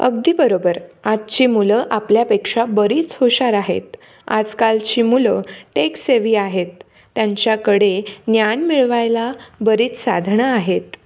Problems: none marked